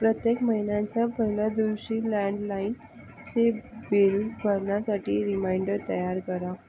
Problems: none marked